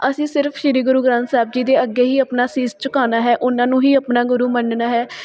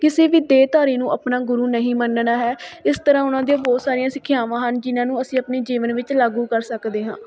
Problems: background sounds at intervals, background conversations at intervals